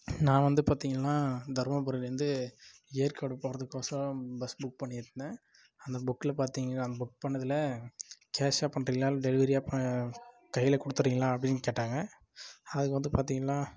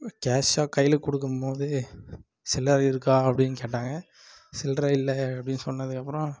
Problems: low volume